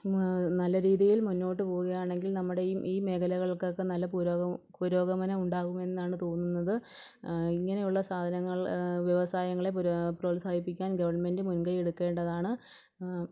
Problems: background sounds at intervals, low volume